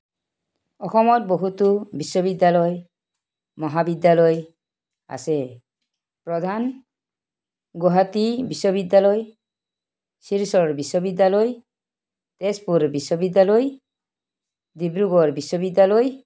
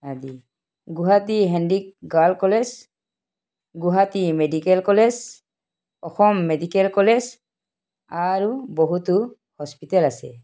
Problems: background sounds at intervals